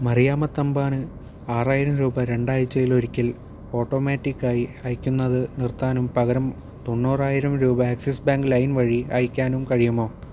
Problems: none marked